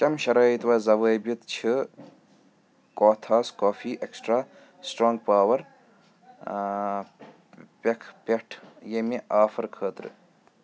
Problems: background sounds at intervals, background conversations at intervals